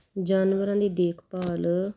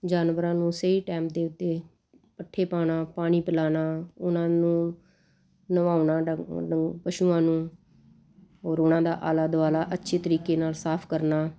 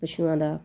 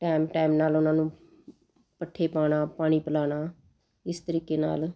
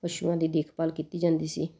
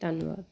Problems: constant background noise